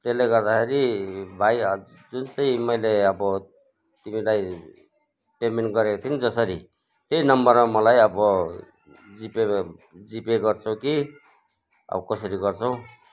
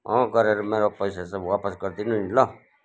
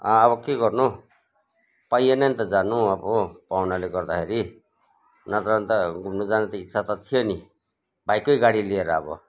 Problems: background conversations at intervals